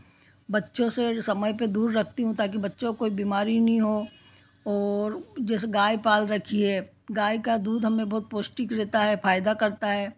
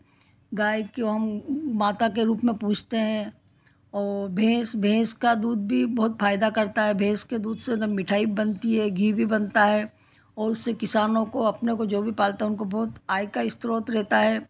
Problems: none marked